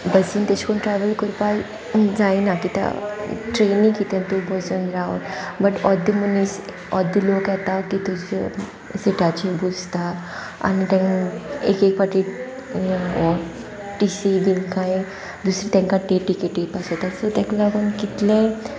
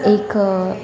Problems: constant background noise